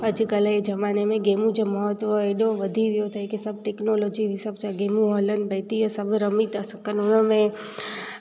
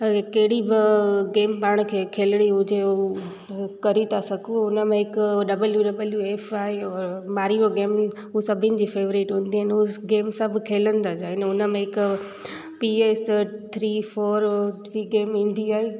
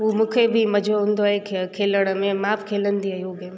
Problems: constant background noise, background conversations at intervals, echo